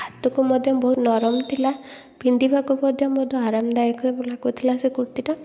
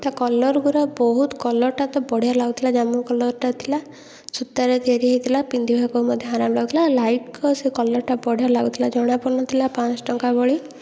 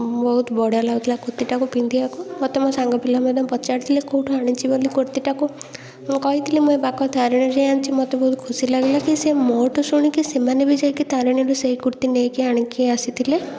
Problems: constant background noise, continuous background conversations